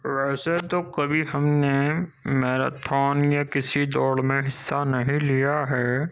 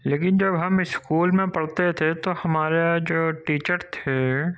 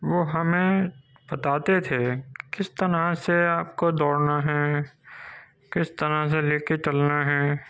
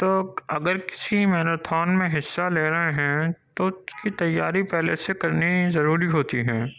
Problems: none marked